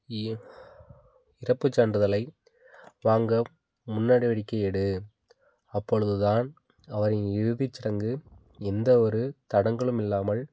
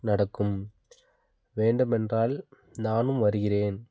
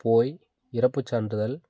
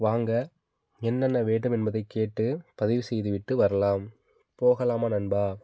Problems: constant background noise